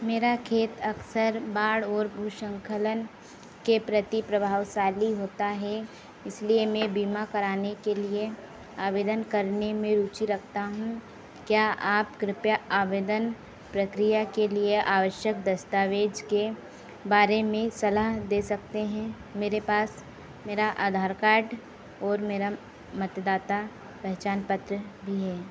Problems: none marked